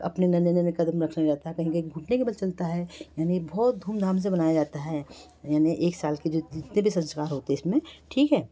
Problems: none marked